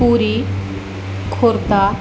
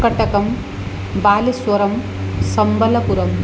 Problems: constant background noise